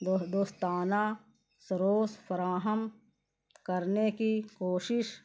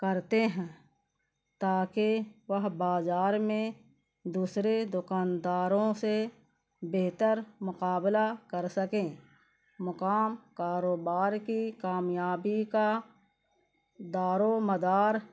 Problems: constant background noise, low volume